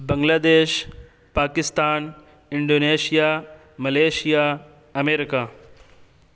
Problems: constant background noise